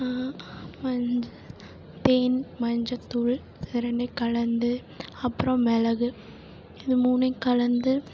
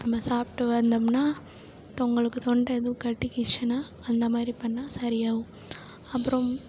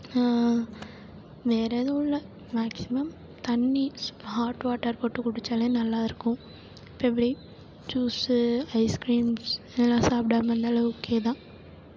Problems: low volume